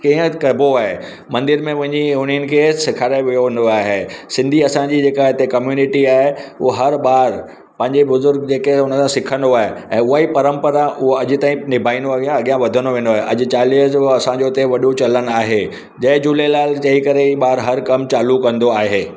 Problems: none marked